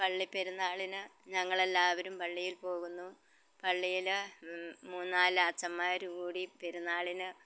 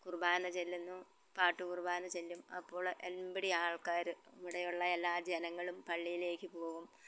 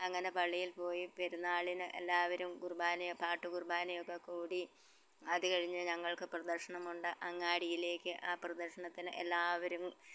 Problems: background sounds at intervals, low volume